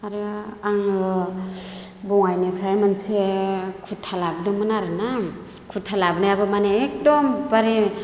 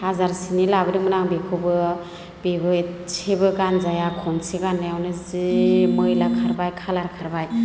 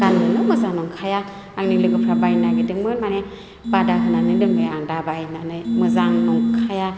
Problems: background sounds at intervals